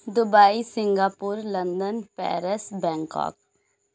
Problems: none marked